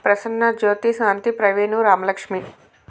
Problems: none marked